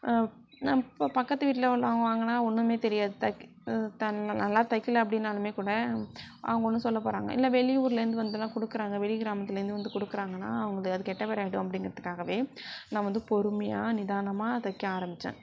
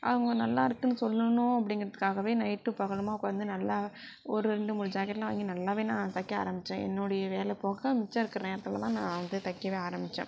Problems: none marked